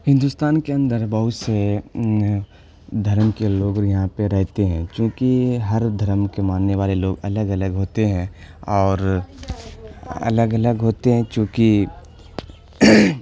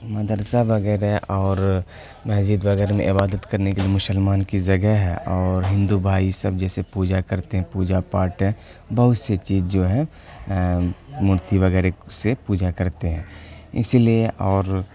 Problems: constant background noise